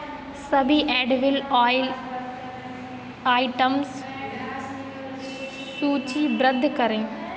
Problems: constant background noise, continuous background conversations